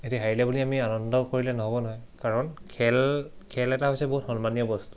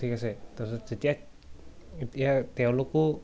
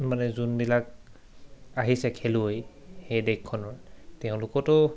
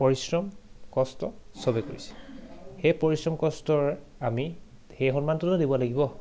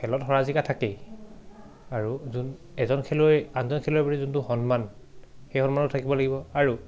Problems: none marked